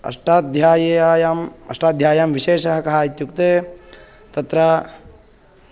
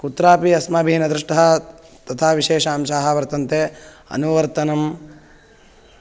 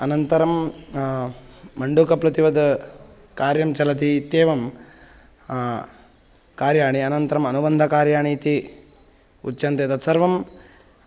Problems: none marked